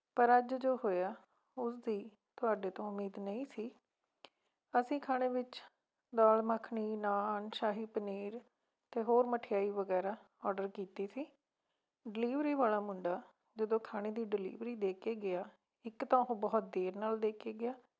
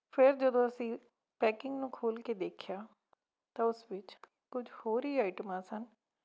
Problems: background sounds at intervals